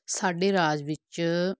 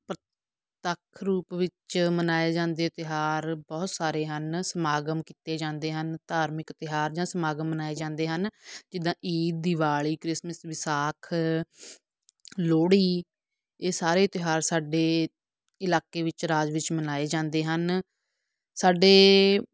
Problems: background sounds at intervals